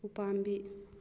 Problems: low volume